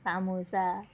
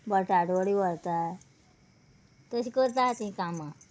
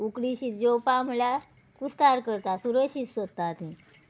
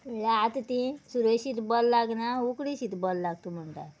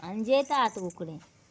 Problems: background sounds at intervals